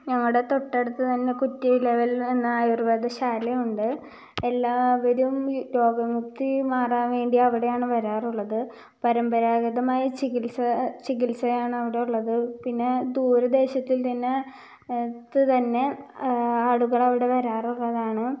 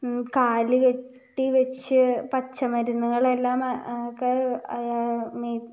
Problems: low volume